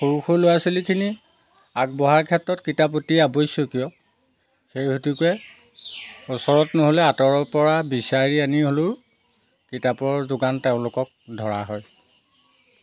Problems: background sounds at intervals